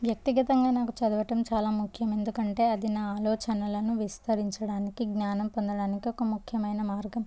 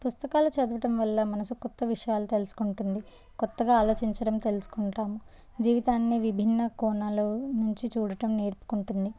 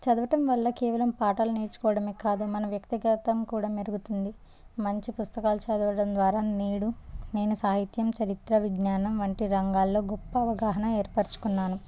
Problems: none marked